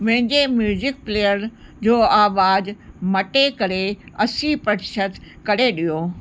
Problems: constant background noise